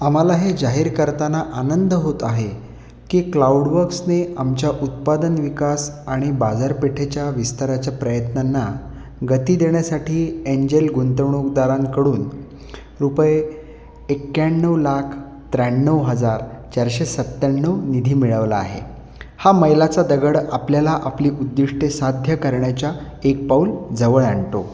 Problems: constant background noise